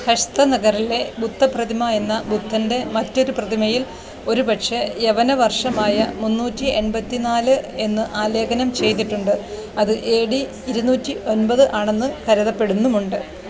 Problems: constant background noise